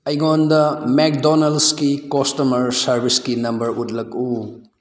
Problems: background sounds at intervals